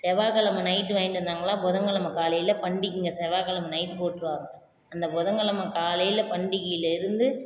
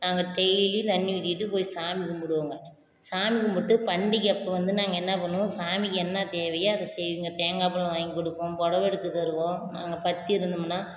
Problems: none marked